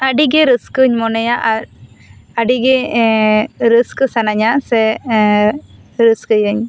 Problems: none marked